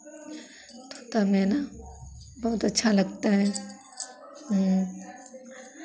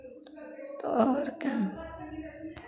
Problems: background sounds at intervals, background conversations at intervals